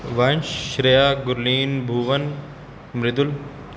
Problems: constant background noise